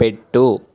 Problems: none marked